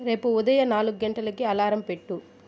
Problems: none marked